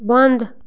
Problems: constant background noise